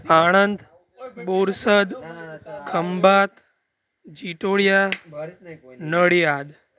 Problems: continuous background conversations